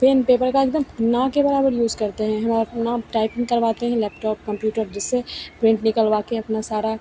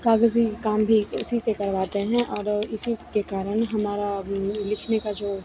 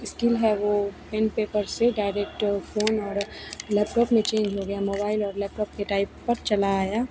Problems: constant background noise, continuous background conversations